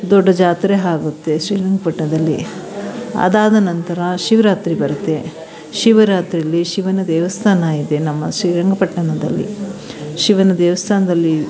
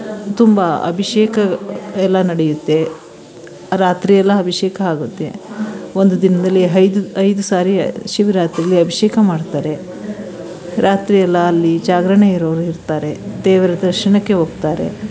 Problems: background sounds at intervals, background conversations at intervals